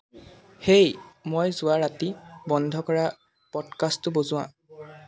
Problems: constant background noise, background conversations at intervals